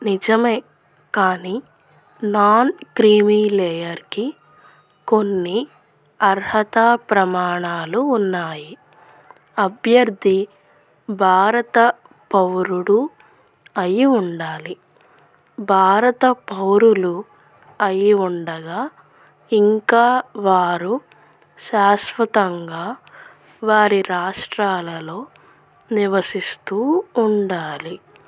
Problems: none marked